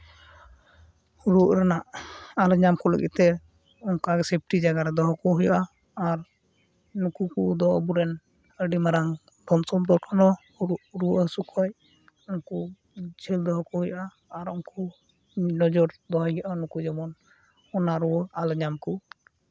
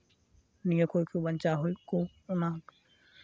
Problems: background sounds at intervals